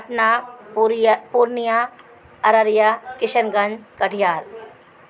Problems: constant background noise